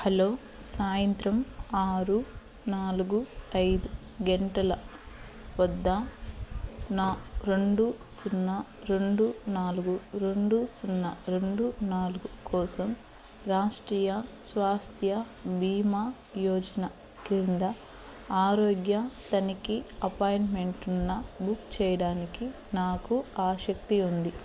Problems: constant background noise